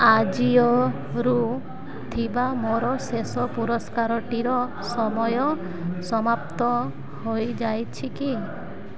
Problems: constant background noise